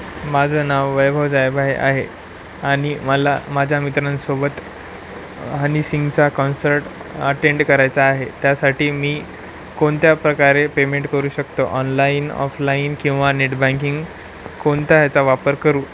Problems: none marked